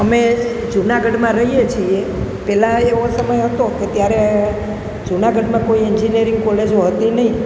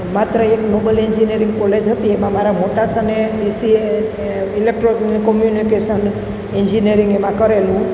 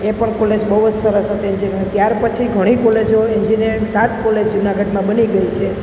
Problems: constant background noise